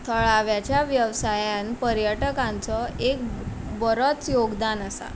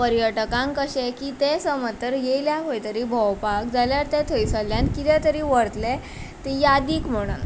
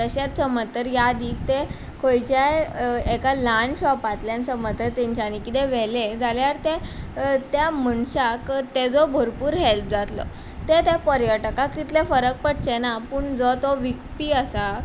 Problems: background sounds at intervals